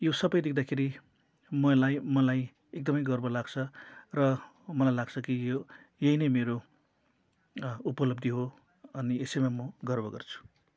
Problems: none marked